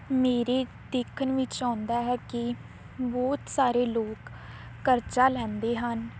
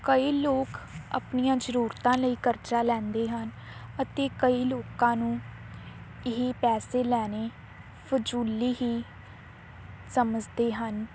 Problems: none marked